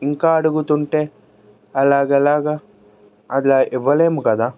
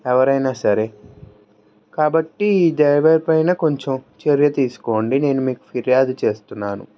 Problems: background sounds at intervals, background conversations at intervals